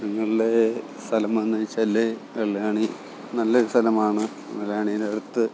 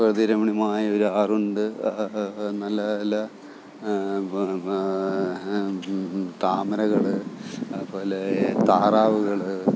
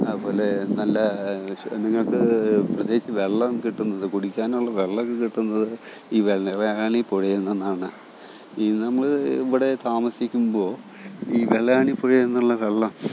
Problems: background sounds at intervals, low volume